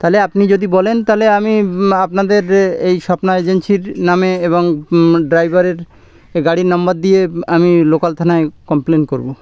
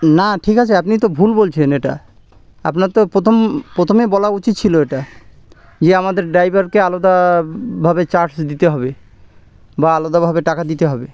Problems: none marked